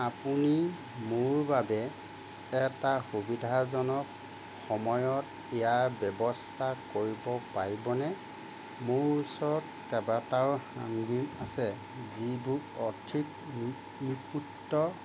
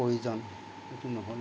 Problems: none marked